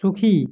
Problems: none marked